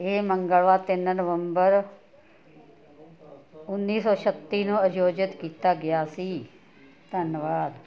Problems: continuous background conversations